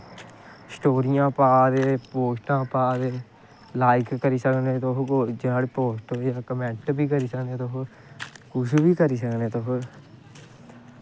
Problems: constant background noise